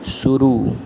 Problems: constant background noise